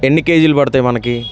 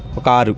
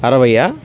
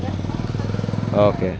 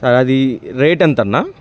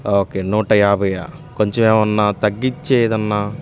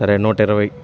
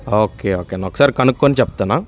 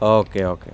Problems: constant background noise